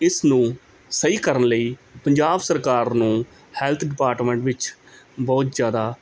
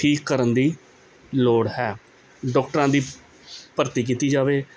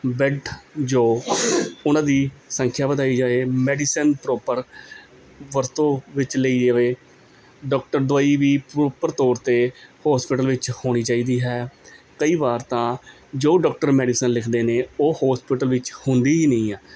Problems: none marked